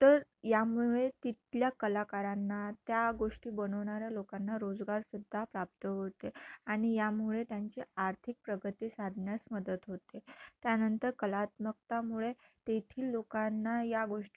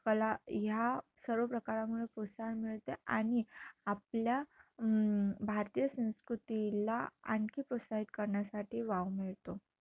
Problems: low volume